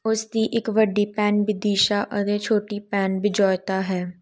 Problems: none marked